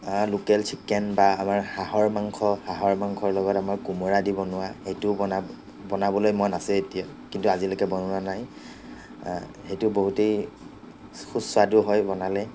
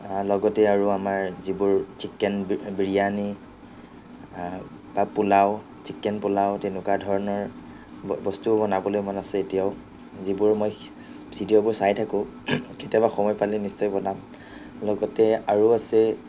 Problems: none marked